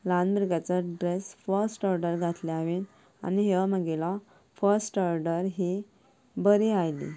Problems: background sounds at intervals